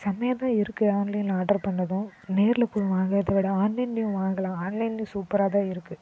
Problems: background sounds at intervals